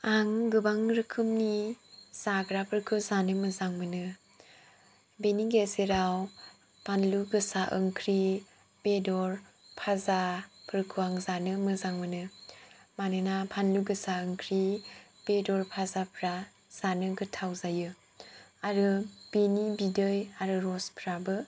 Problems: low volume